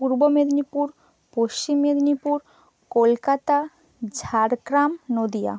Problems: none marked